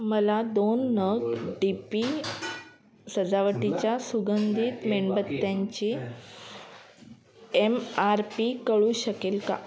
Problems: constant background noise, background conversations at intervals